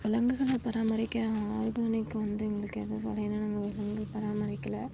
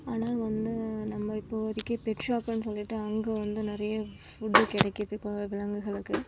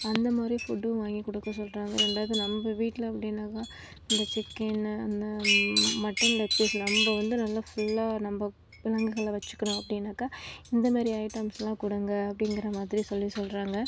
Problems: background sounds at intervals, low volume